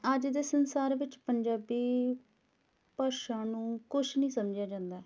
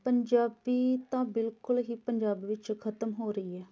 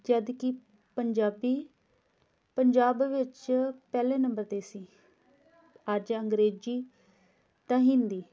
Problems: background conversations at intervals